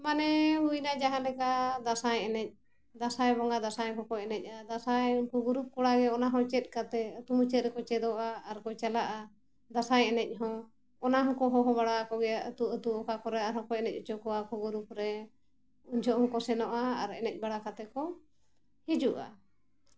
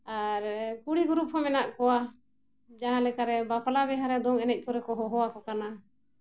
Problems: constant background noise